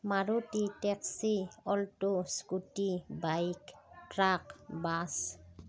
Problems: none marked